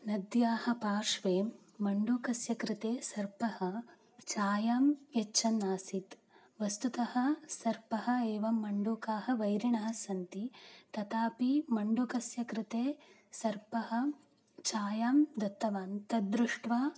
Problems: none marked